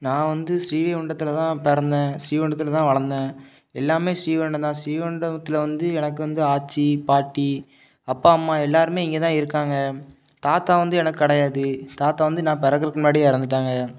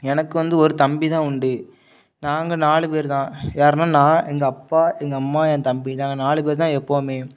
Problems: none marked